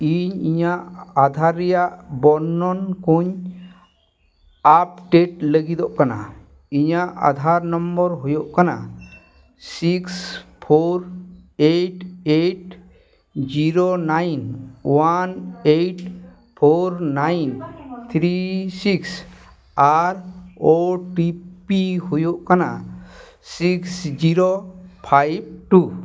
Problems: background conversations at intervals